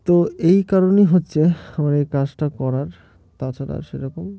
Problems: background sounds at intervals